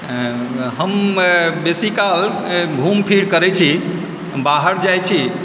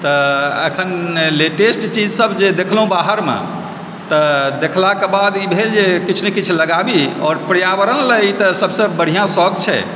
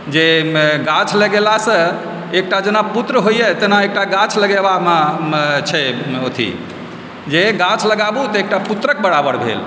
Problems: background sounds at intervals